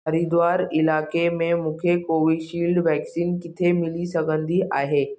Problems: none marked